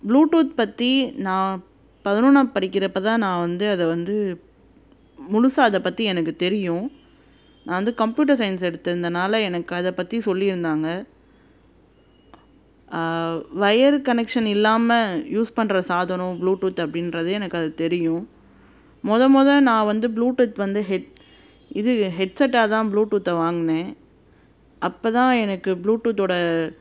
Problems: constant background noise